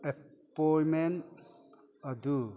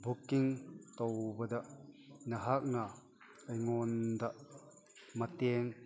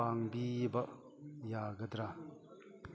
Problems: background sounds at intervals